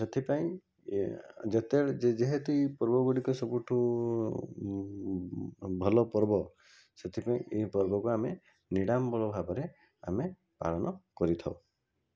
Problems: constant background noise